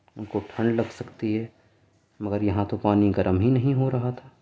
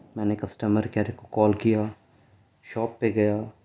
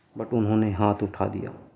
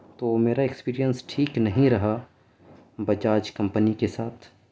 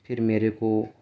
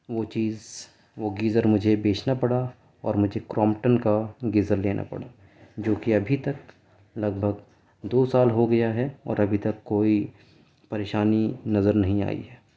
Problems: none marked